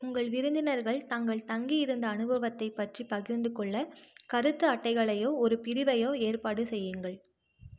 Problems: none marked